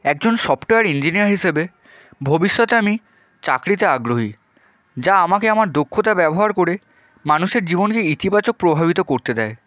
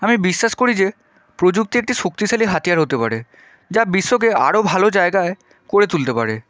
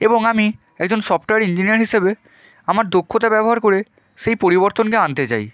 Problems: none marked